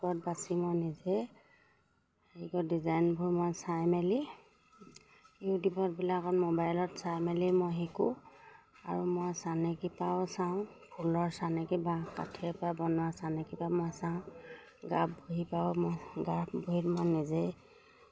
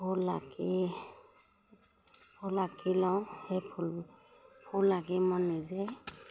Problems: none marked